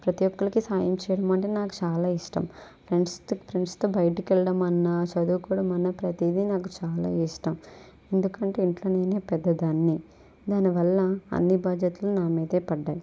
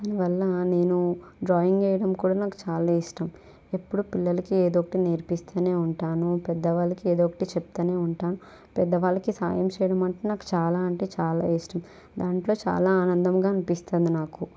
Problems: none marked